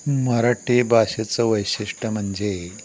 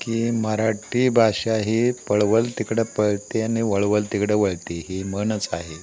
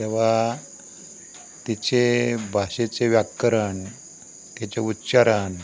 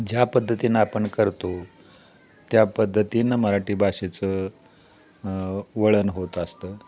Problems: none marked